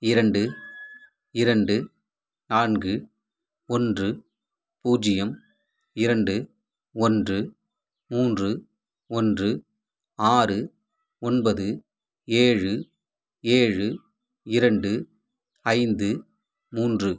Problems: background sounds at intervals